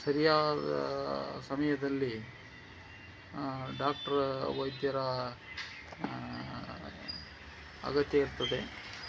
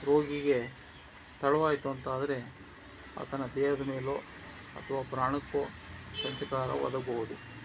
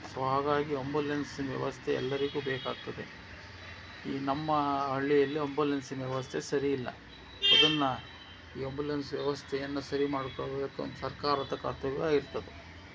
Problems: constant background noise